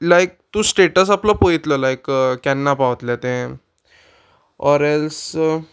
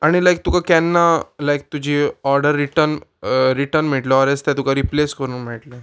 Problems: background sounds at intervals